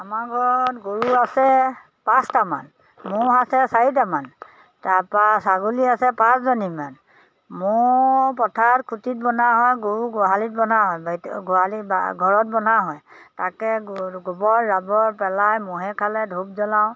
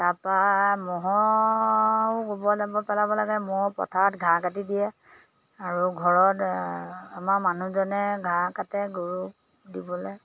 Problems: none marked